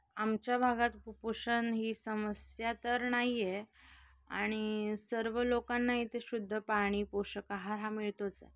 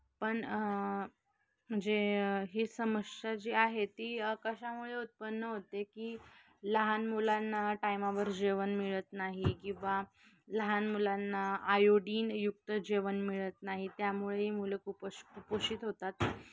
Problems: none marked